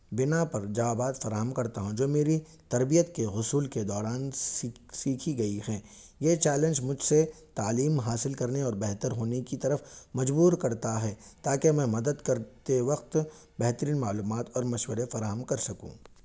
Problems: none marked